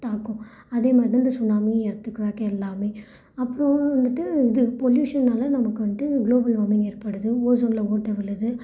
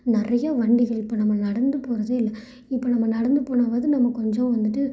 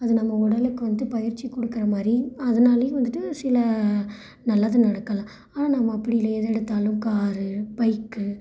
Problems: none marked